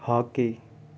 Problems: constant background noise